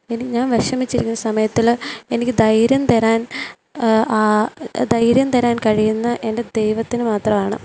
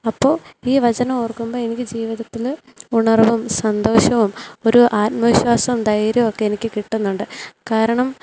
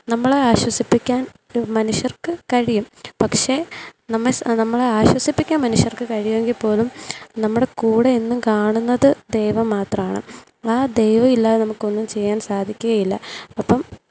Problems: low volume